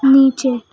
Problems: background sounds at intervals